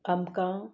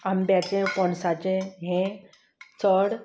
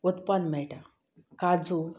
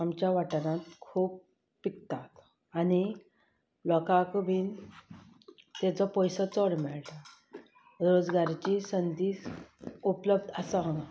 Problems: constant background noise